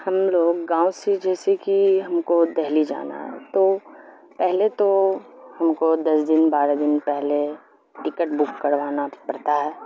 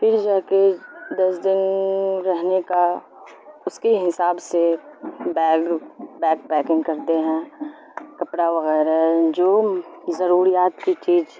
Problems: constant background noise